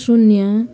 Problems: continuous background conversations